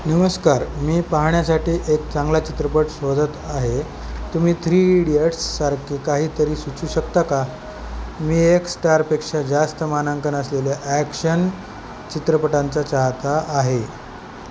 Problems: none marked